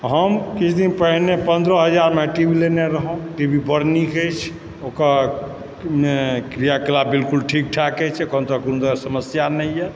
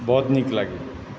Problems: constant background noise